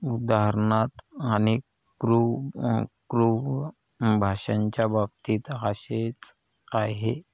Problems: none marked